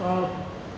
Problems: low volume